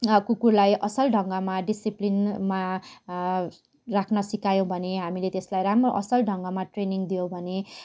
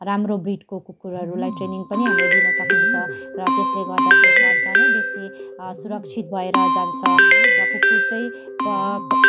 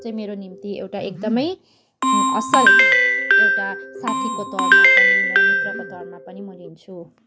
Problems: constant background noise, continuous background conversations